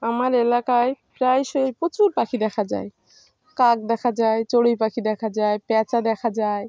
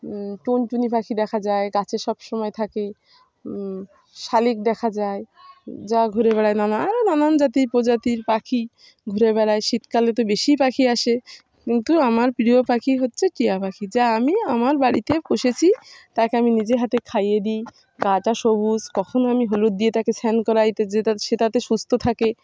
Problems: background sounds at intervals, background conversations at intervals